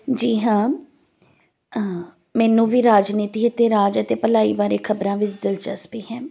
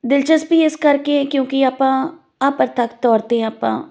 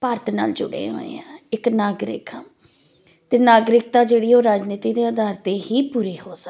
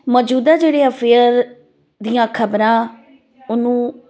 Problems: none marked